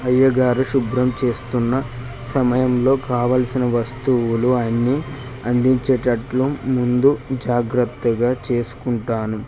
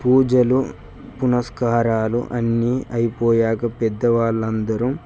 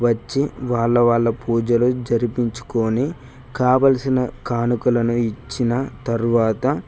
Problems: constant background noise